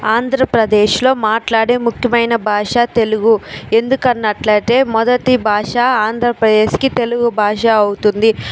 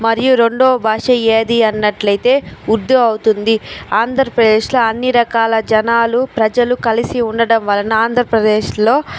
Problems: constant background noise